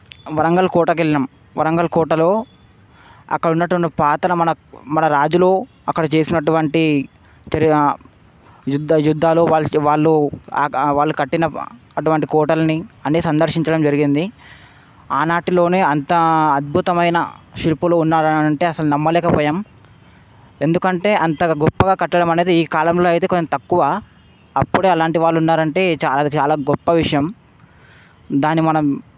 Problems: background sounds at intervals